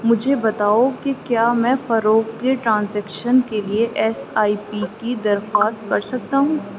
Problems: none marked